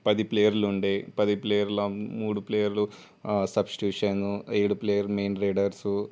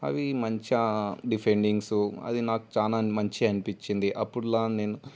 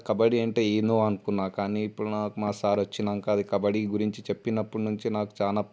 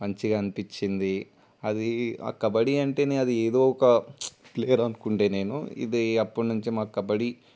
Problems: none marked